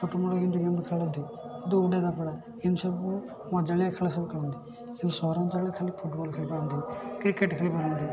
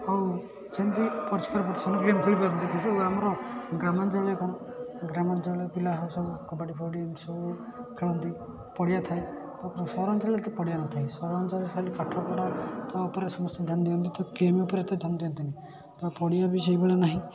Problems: constant background noise, continuous background conversations